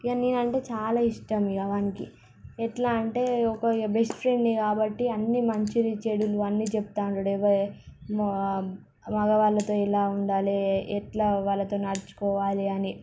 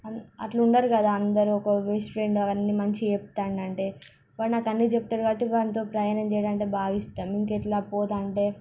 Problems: background sounds at intervals